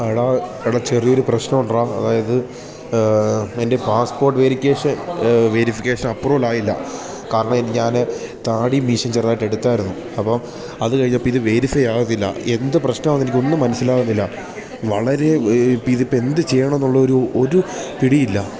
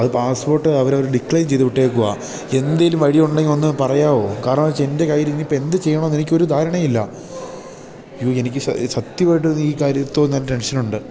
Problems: none marked